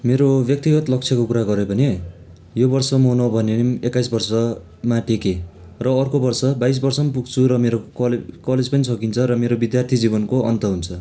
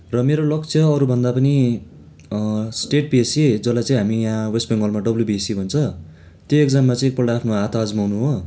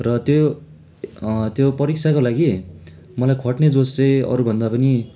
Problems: none marked